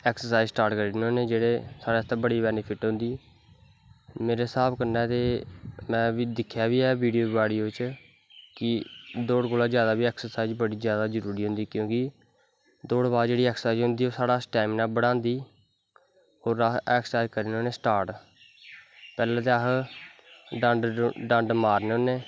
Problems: constant background noise